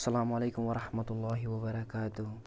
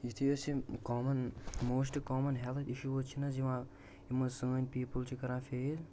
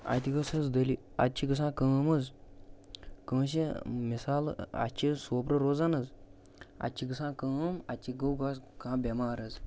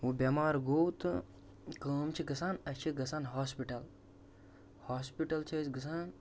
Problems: constant background noise